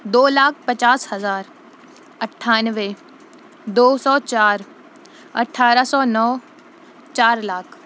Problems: none marked